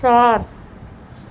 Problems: constant background noise